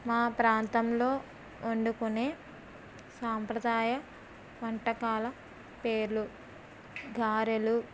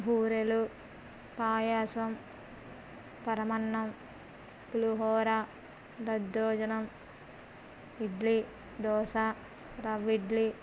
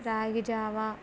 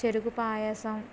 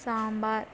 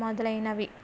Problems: none marked